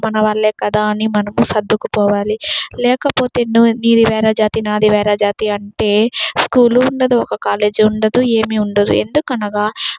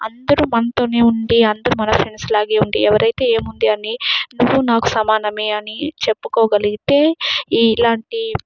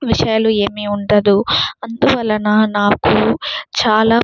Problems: none marked